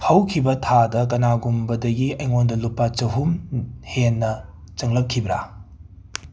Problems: background sounds at intervals